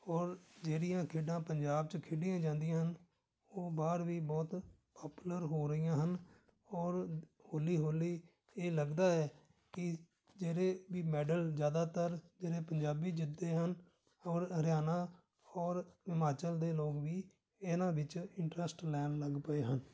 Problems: background sounds at intervals